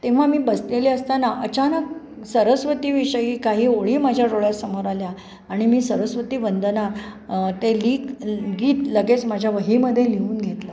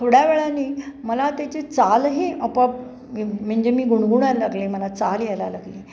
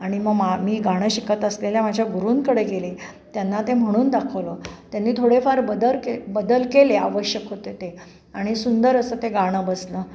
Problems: constant background noise